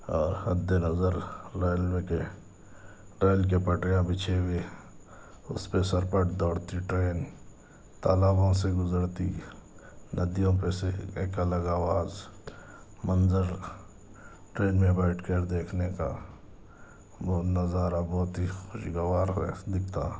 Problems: none marked